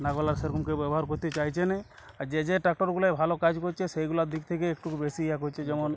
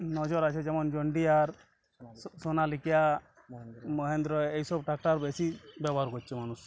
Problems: constant background noise, continuous background conversations